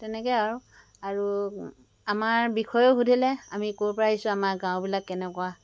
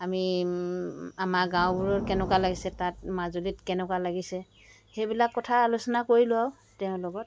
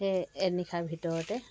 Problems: background sounds at intervals